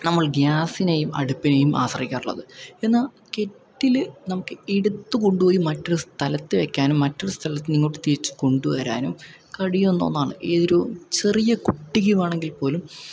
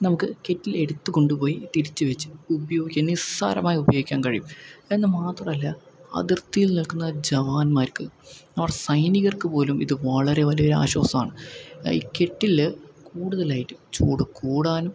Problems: none marked